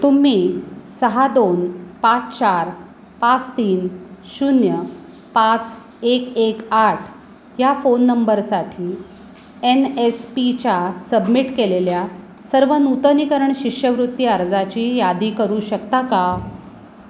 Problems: constant background noise